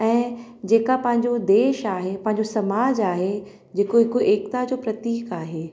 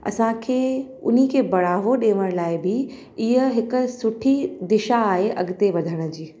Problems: echo